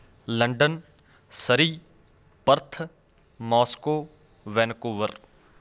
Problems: constant background noise